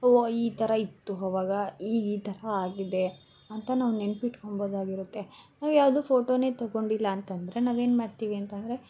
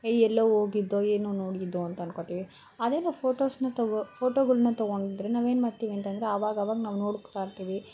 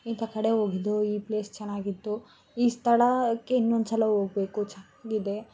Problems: background sounds at intervals